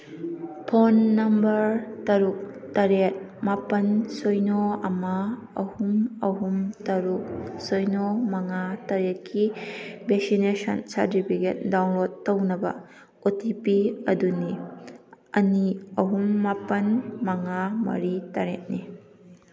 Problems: constant background noise